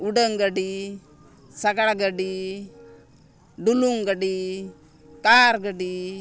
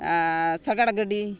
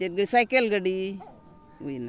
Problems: constant background noise